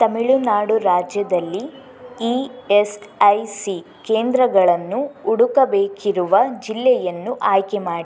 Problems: background sounds at intervals